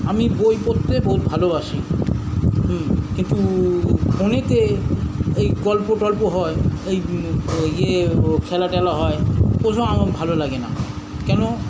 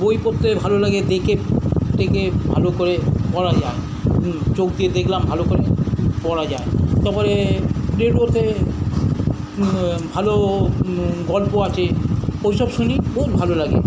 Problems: constant background noise